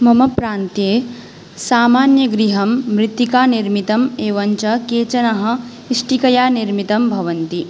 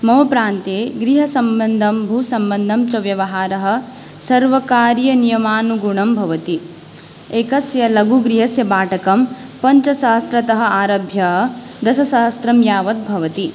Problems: none marked